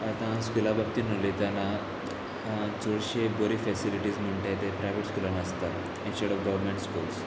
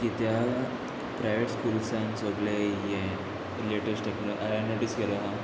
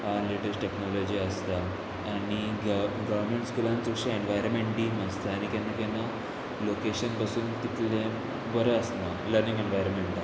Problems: none marked